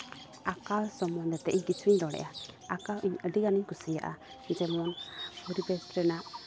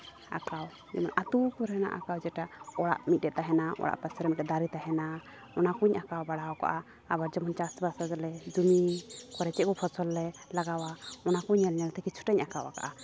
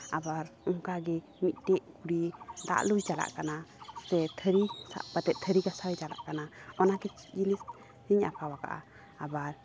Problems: constant background noise, background conversations at intervals